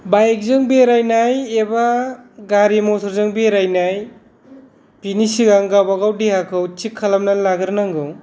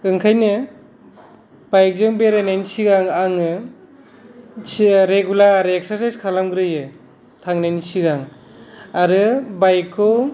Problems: none marked